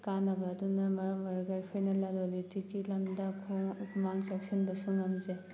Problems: background sounds at intervals